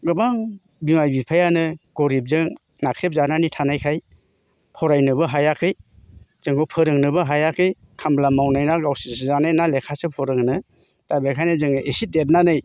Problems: none marked